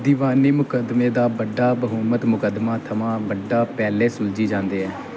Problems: constant background noise